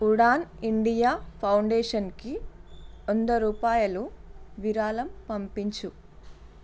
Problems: constant background noise